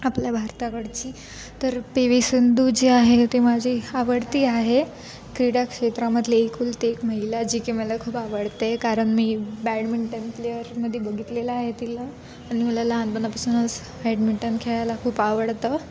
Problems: constant background noise